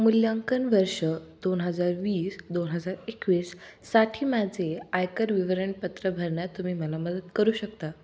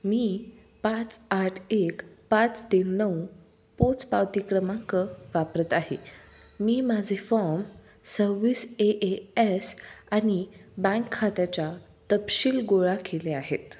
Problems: background sounds at intervals